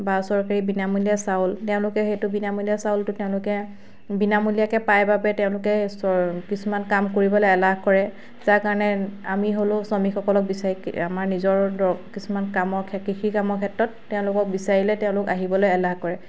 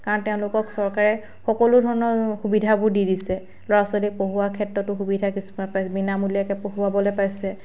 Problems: background sounds at intervals